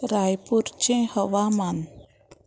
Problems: constant background noise